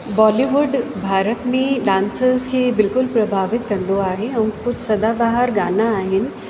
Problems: constant background noise, echo